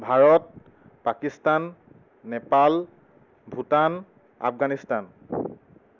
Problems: none marked